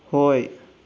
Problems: low volume